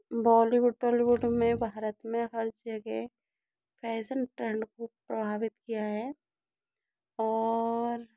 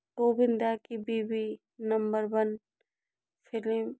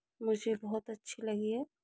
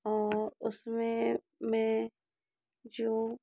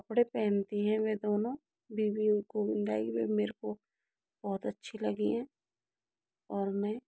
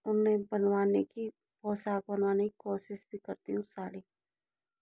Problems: low volume